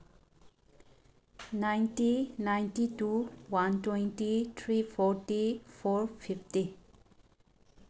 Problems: background sounds at intervals